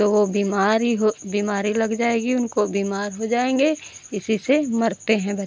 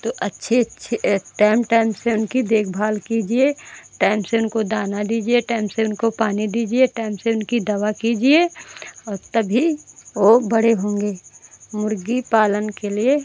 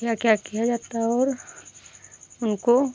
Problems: none marked